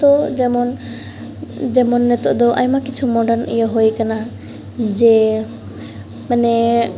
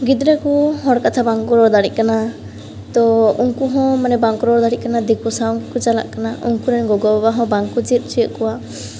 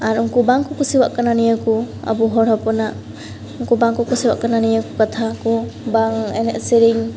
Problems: background sounds at intervals